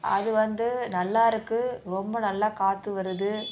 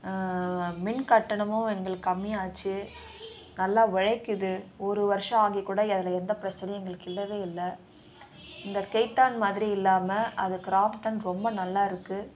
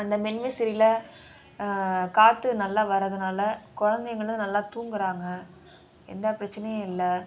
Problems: continuous background conversations